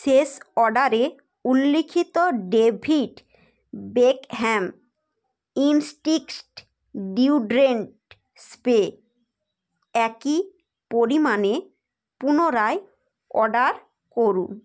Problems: background sounds at intervals